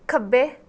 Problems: none marked